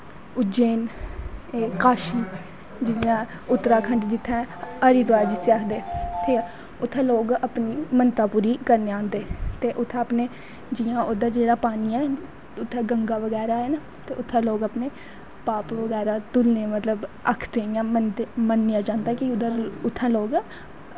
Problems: background sounds at intervals